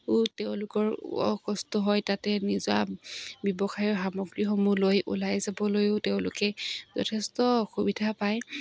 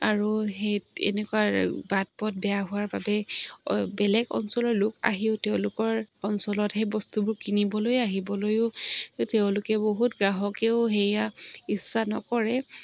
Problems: none marked